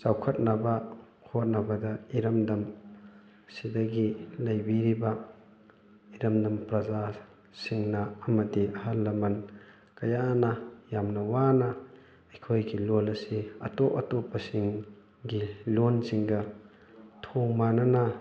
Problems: background sounds at intervals, background conversations at intervals